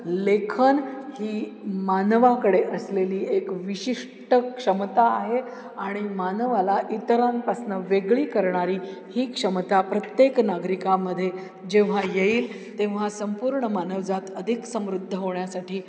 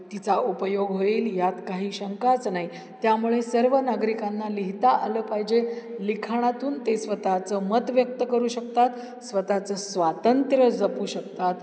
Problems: background sounds at intervals, background conversations at intervals